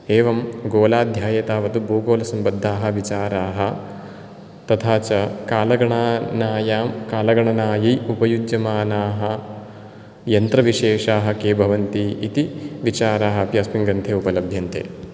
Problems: none marked